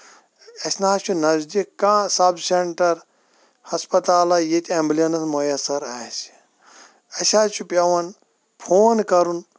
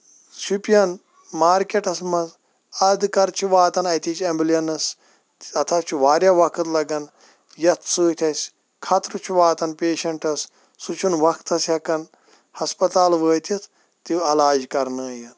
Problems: none marked